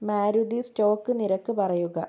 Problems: low volume